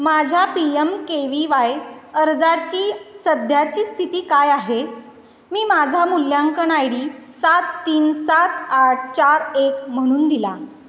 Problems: none marked